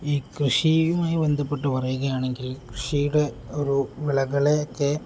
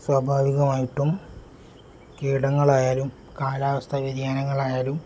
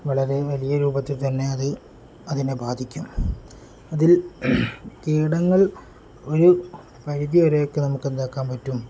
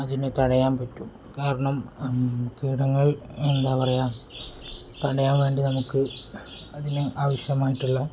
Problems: low volume